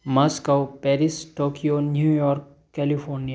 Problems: background sounds at intervals